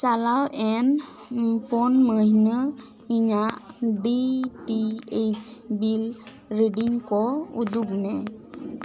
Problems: background conversations at intervals